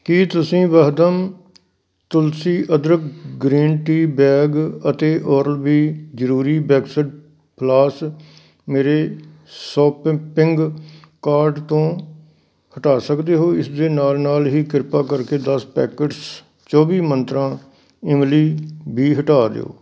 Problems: none marked